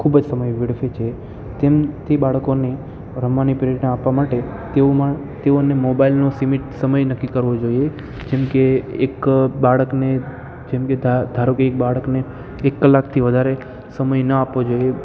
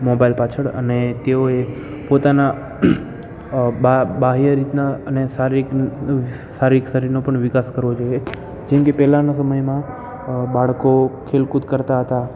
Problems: constant background noise